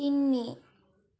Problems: none marked